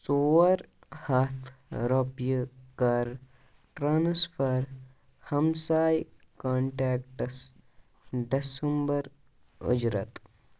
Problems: none marked